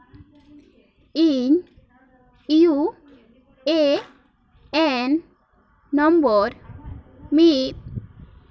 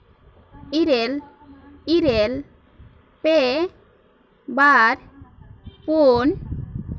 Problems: continuous background conversations